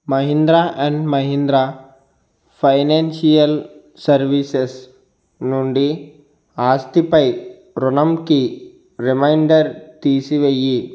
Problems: constant background noise